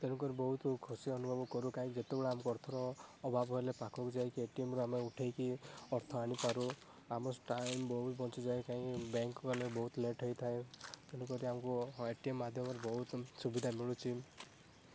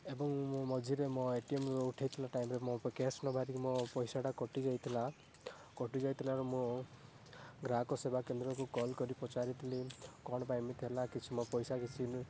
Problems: background sounds at intervals, low volume